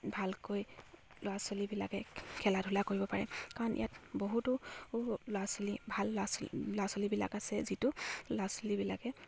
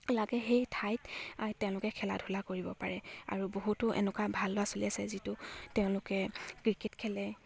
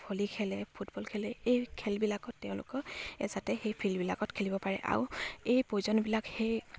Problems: none marked